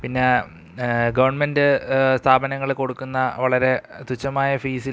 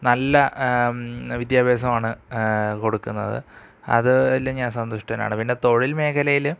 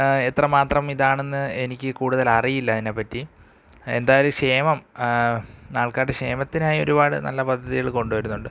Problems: none marked